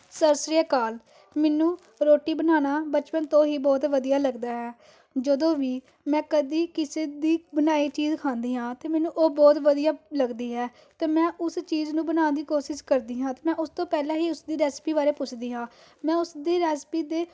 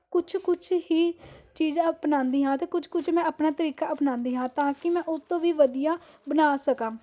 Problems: background sounds at intervals